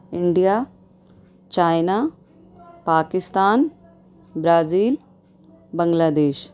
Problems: background conversations at intervals